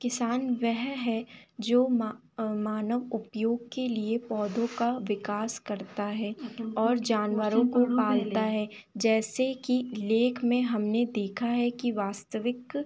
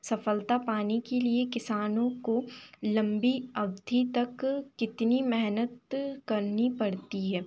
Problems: constant background noise